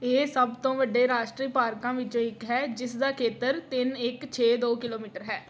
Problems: background sounds at intervals